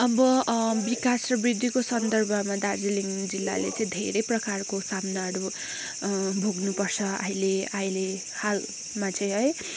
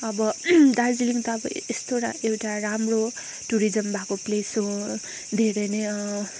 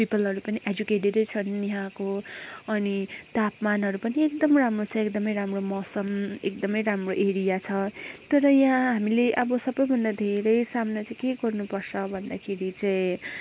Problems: background sounds at intervals